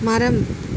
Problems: constant background noise